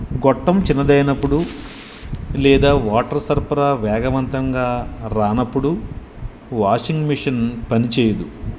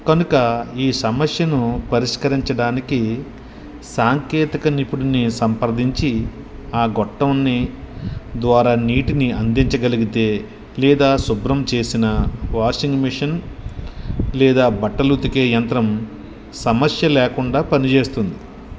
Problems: constant background noise